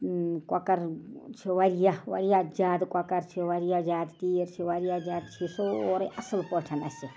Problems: background sounds at intervals